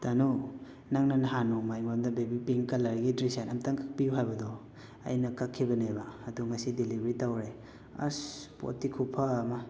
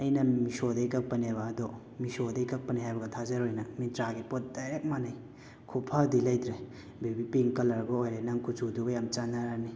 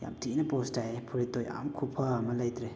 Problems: constant background noise, echo